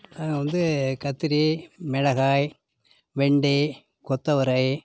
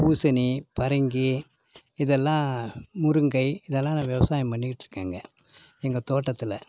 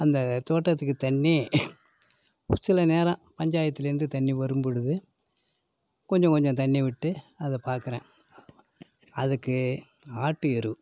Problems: none marked